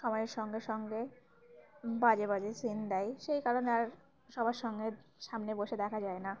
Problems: constant background noise, background conversations at intervals